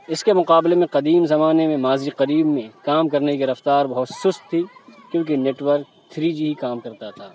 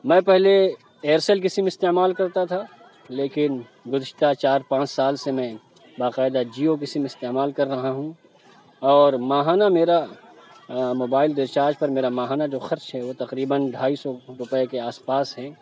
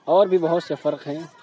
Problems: constant background noise, background conversations at intervals